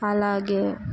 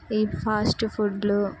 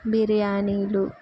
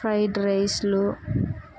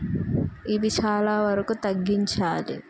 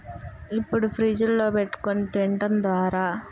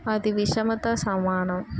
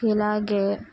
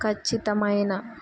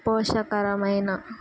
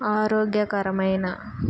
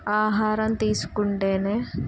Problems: none marked